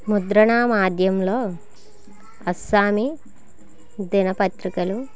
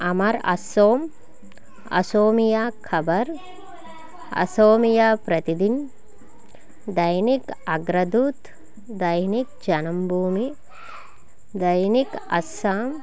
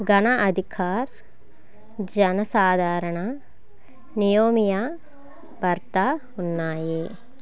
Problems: constant background noise